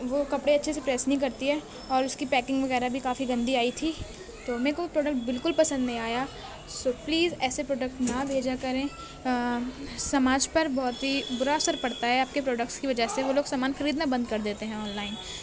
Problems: constant background noise